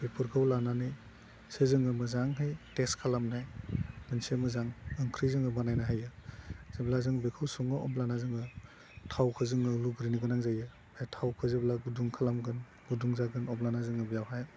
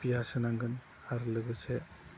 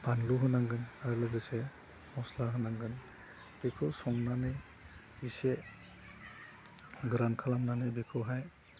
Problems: low volume